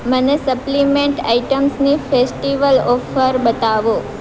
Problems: constant background noise